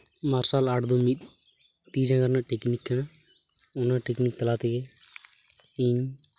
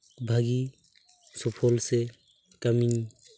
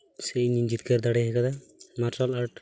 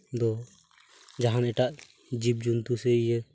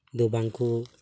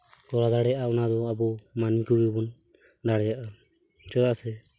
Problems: constant background noise